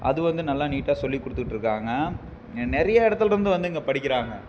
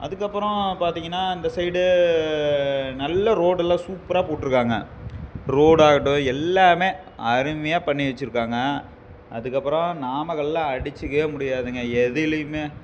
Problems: background sounds at intervals